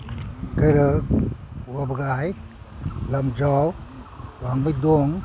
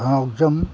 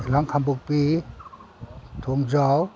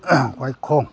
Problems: none marked